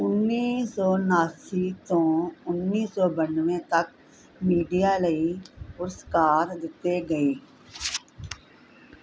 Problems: none marked